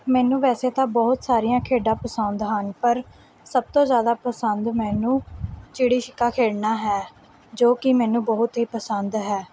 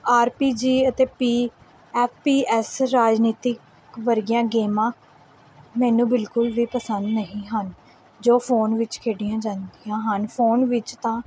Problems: background sounds at intervals